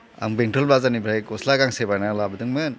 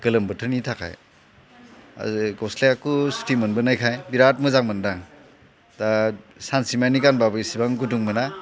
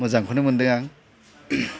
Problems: constant background noise